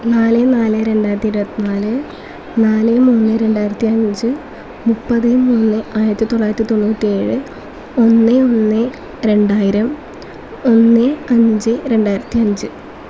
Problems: constant background noise